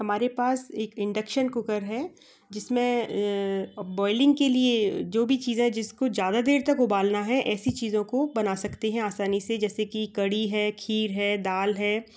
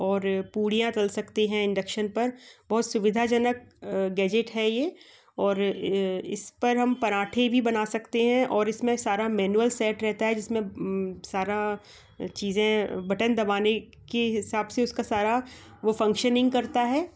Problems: none marked